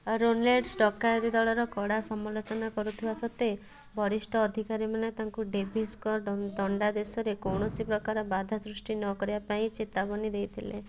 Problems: background sounds at intervals, background conversations at intervals